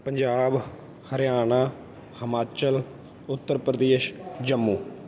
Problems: background sounds at intervals